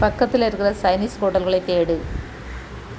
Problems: constant background noise